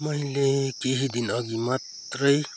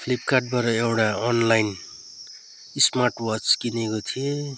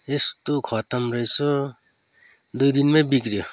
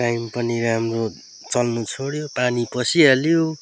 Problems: constant background noise